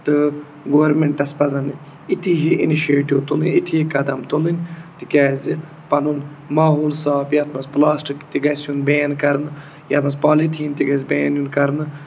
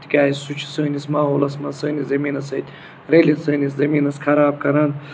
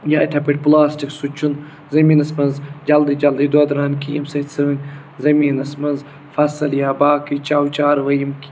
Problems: none marked